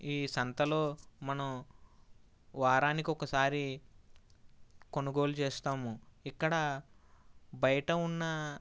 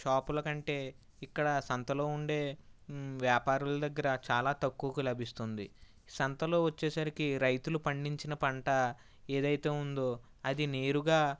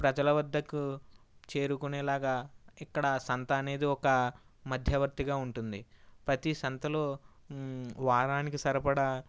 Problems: none marked